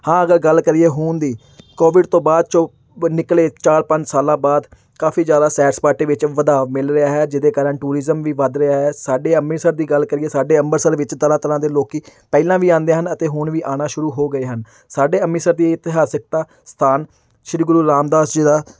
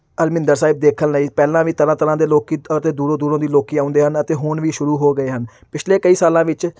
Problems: none marked